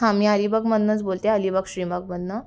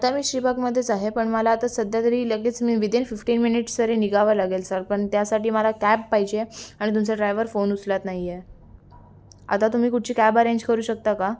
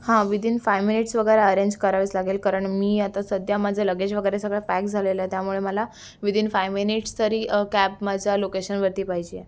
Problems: constant background noise, continuous background conversations